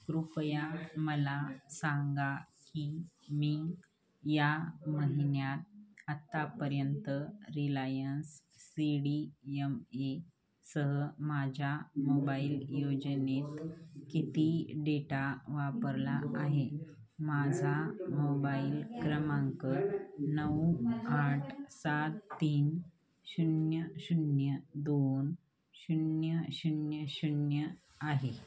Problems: none marked